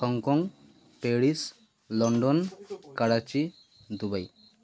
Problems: constant background noise